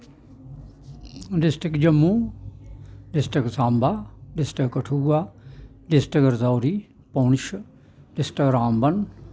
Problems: none marked